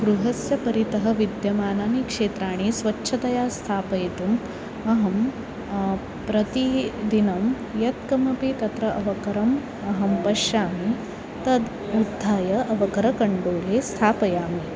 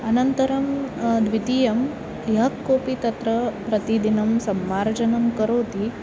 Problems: constant background noise